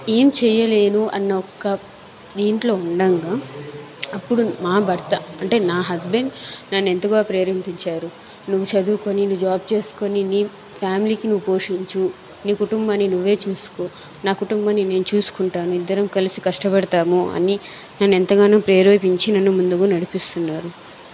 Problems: constant background noise